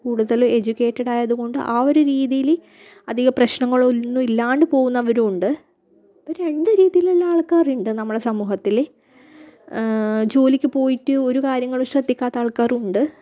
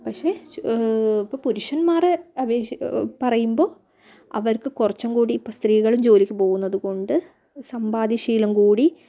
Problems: low volume